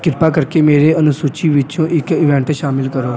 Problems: constant background noise